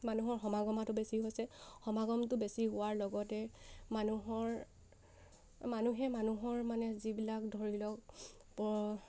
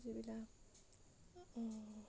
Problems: none marked